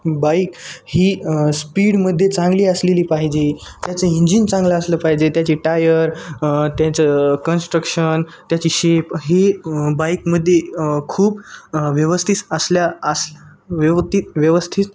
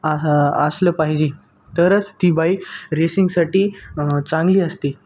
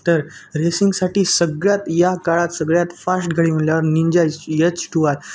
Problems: constant background noise